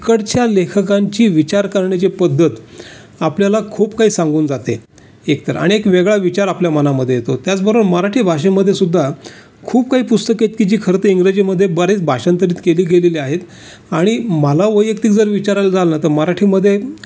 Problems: constant background noise